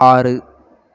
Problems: continuous background conversations